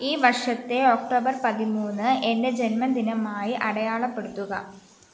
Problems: constant background noise